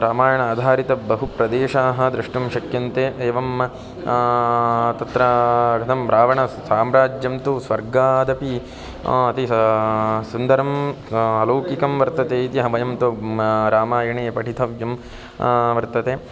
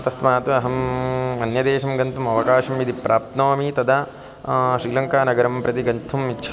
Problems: constant background noise, continuous background conversations